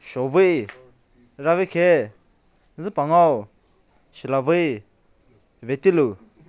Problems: none marked